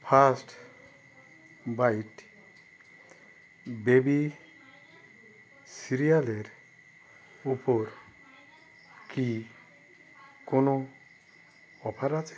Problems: none marked